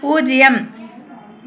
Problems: constant background noise